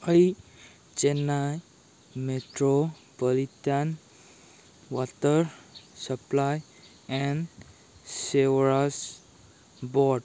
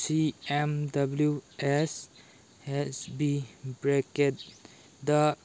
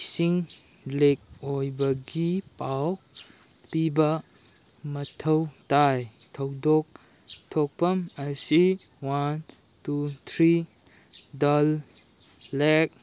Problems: background sounds at intervals